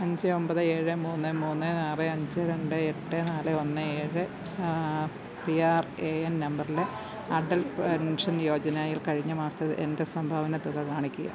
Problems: low volume